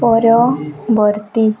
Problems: background sounds at intervals